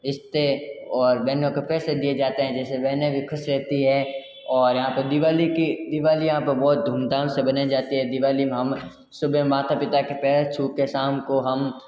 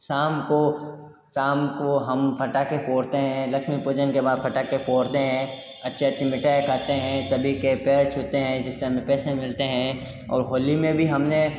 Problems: background sounds at intervals